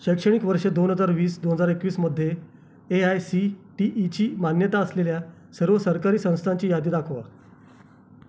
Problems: constant background noise